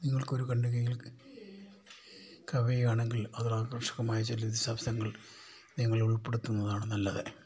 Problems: low volume